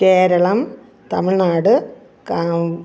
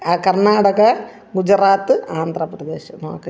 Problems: none marked